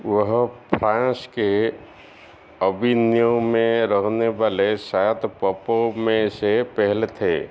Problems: none marked